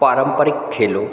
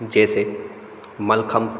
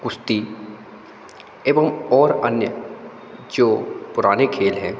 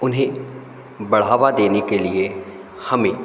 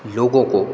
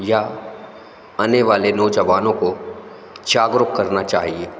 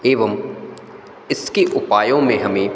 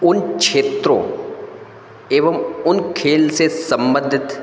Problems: constant background noise, echo